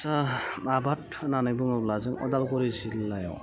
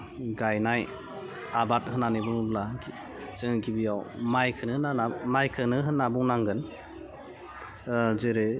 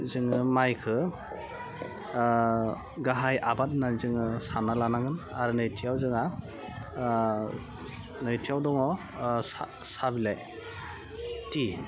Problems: background sounds at intervals, low volume